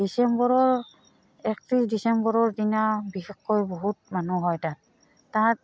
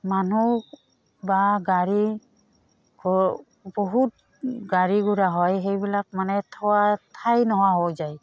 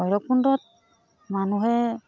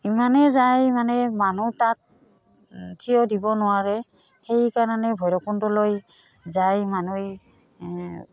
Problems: background sounds at intervals